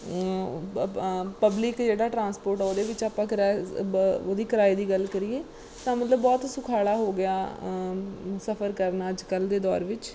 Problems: background sounds at intervals